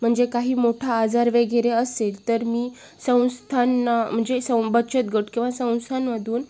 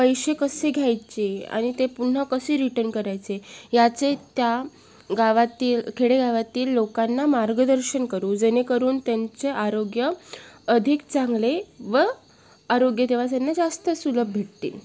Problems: none marked